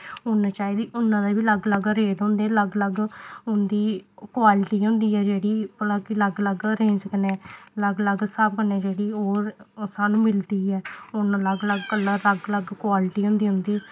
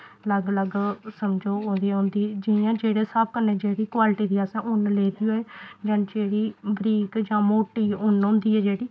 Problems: none marked